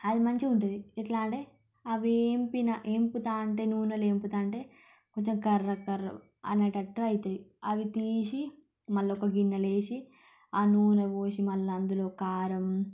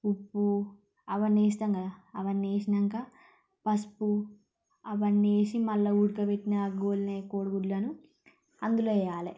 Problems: low volume